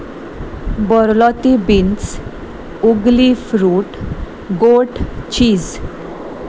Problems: none marked